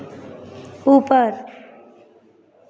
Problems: constant background noise